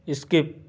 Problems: none marked